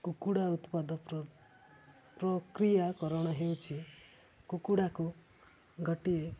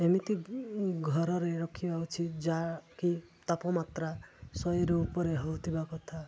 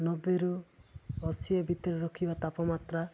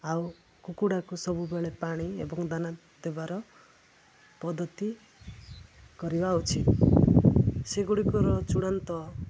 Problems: constant background noise